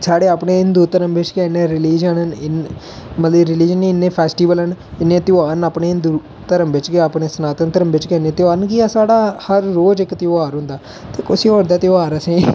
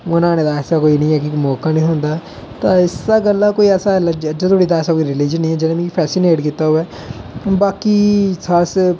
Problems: none marked